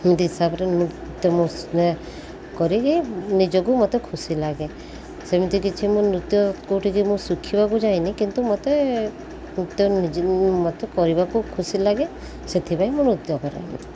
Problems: constant background noise